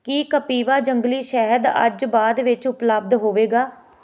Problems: none marked